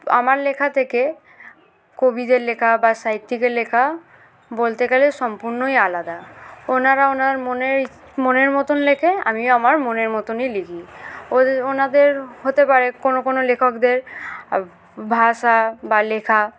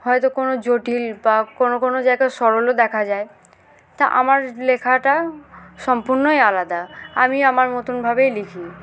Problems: constant background noise